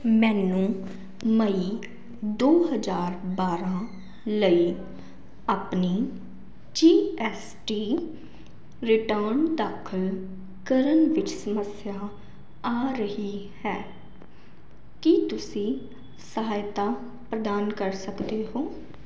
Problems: none marked